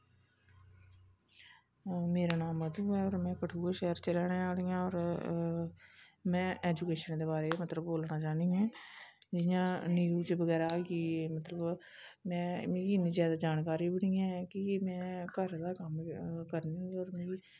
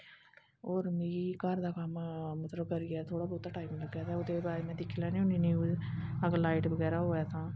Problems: background sounds at intervals